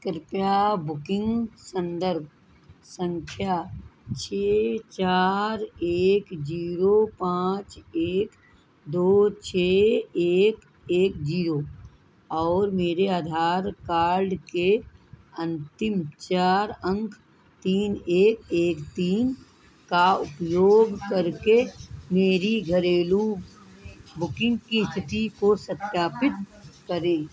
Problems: constant background noise